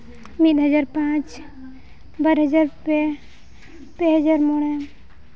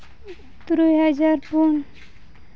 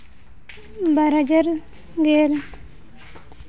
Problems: none marked